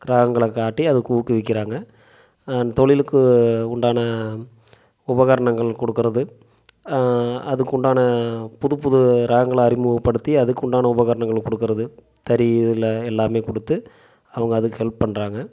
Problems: none marked